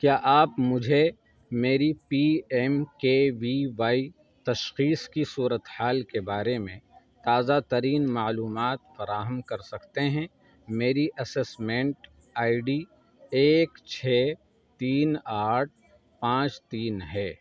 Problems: constant background noise